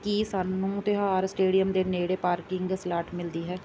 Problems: background sounds at intervals